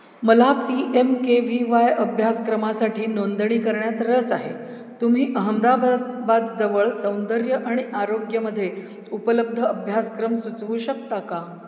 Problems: none marked